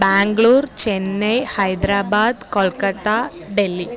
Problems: background conversations at intervals